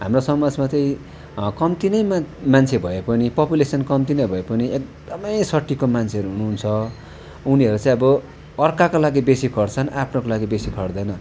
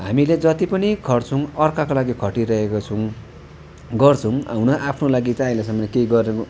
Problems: none marked